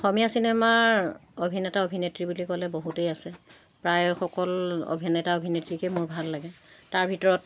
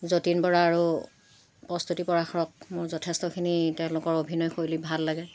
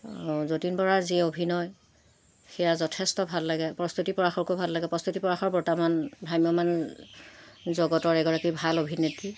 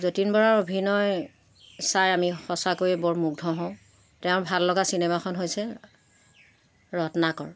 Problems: constant background noise